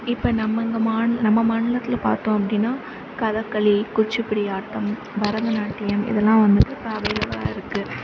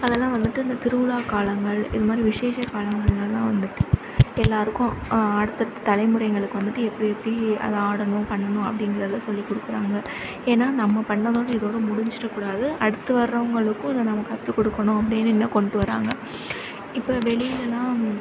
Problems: none marked